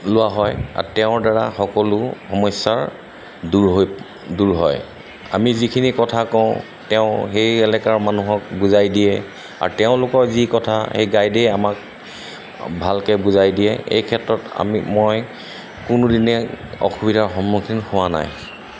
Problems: constant background noise